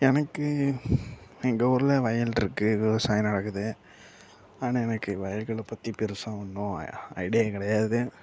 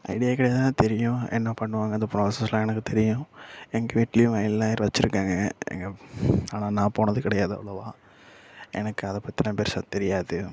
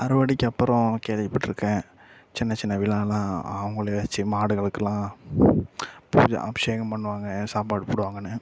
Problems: background sounds at intervals, low volume